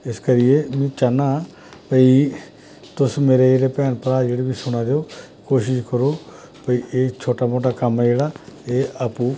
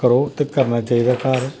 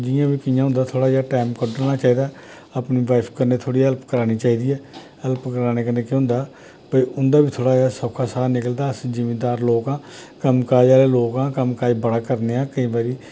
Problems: none marked